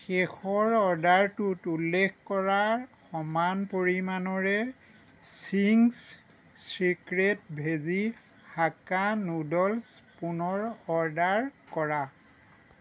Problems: none marked